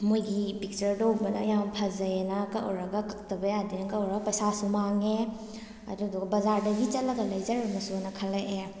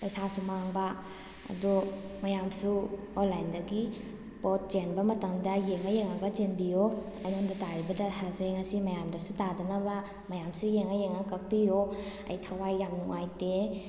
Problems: none marked